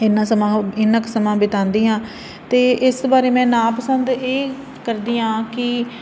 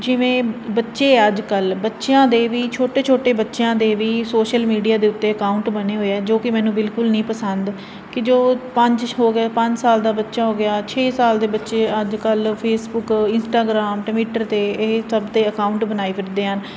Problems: constant background noise